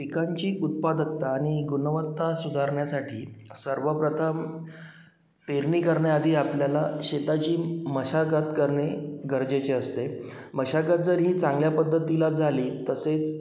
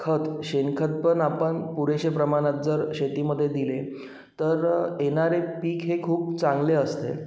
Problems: constant background noise, echo